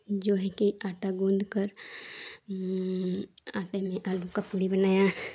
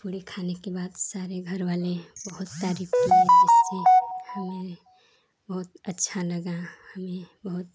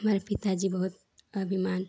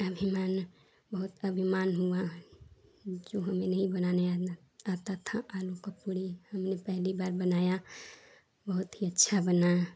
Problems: low volume